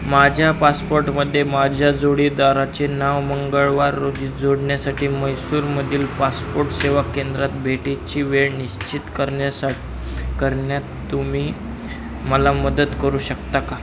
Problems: constant background noise, continuous background conversations